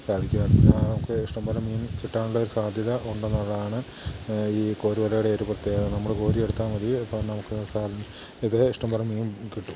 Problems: constant background noise